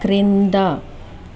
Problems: constant background noise